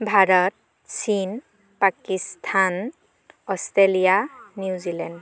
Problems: background conversations at intervals